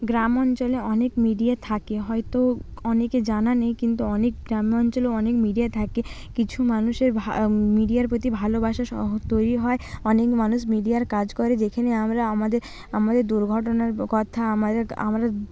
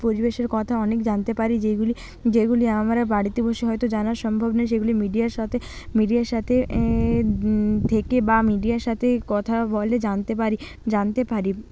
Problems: background sounds at intervals